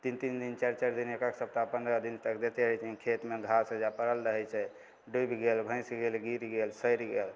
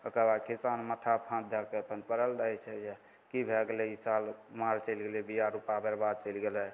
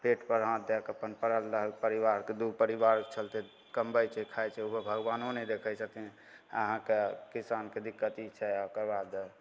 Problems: none marked